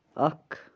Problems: background sounds at intervals